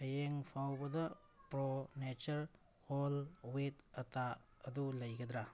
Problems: background sounds at intervals